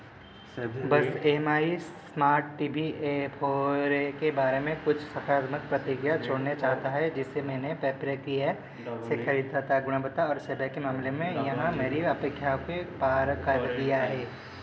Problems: constant background noise